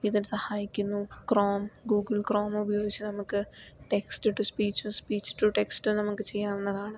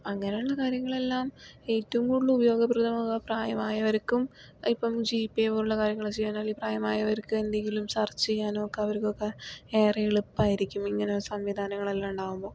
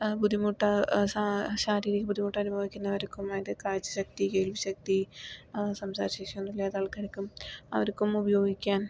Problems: none marked